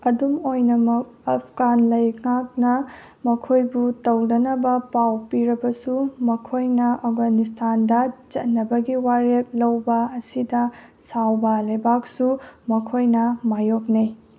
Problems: none marked